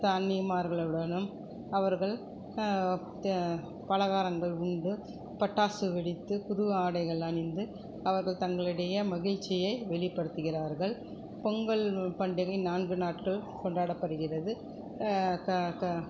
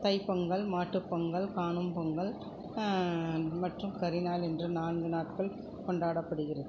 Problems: none marked